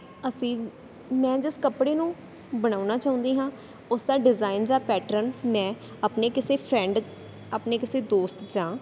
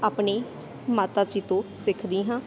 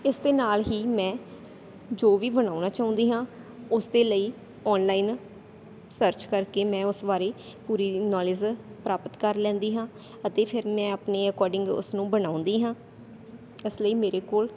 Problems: none marked